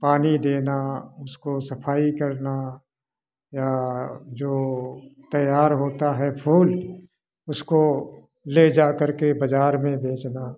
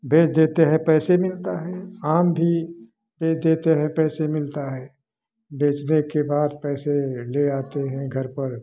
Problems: background sounds at intervals, background conversations at intervals